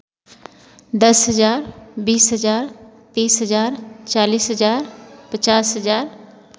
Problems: constant background noise